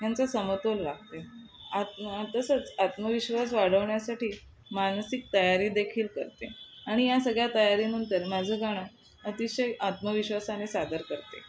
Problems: constant background noise